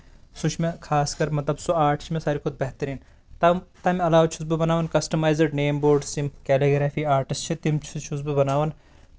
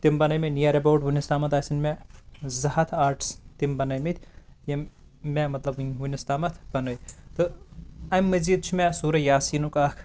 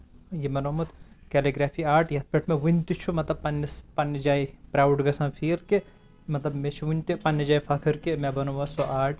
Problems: constant background noise